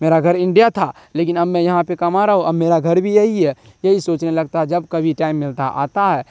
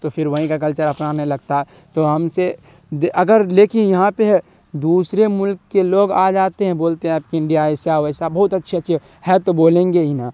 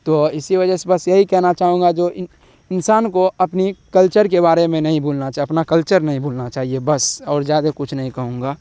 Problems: constant background noise